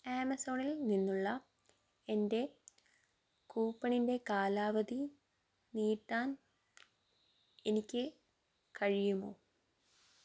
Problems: low volume